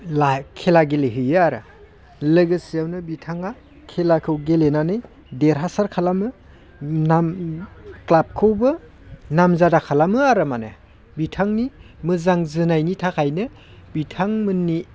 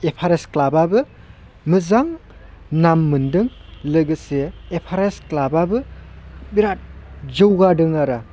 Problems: constant background noise